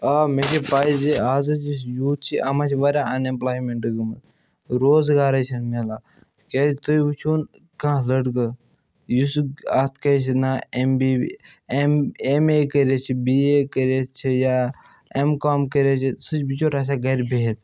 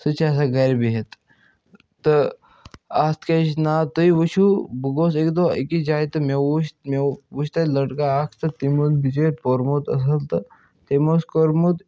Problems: none marked